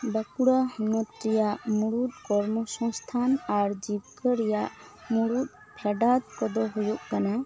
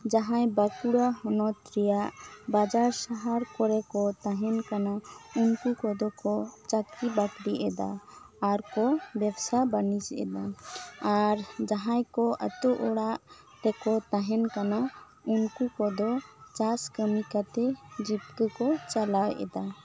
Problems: background sounds at intervals